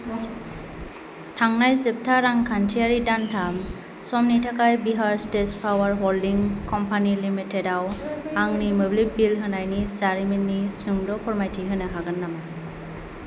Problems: constant background noise